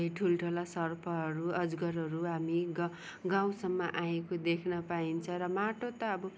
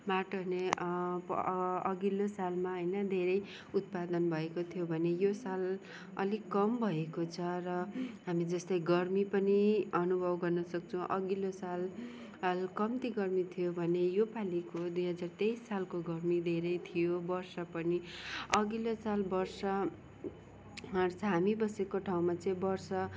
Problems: background sounds at intervals